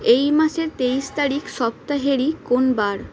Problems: constant background noise